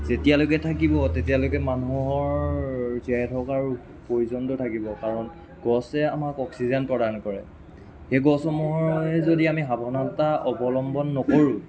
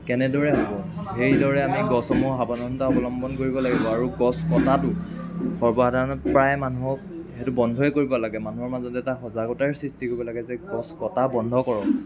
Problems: constant background noise, continuous background conversations